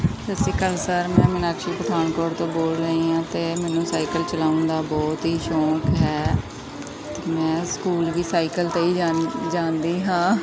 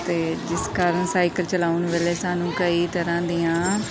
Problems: none marked